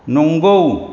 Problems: constant background noise